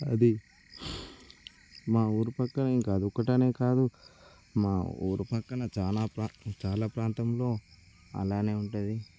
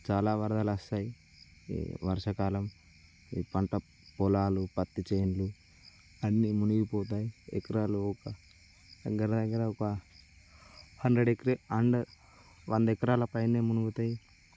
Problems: constant background noise